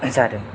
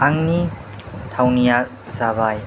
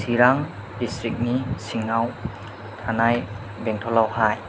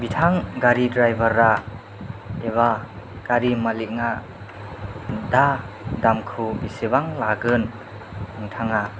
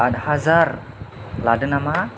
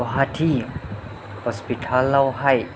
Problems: low volume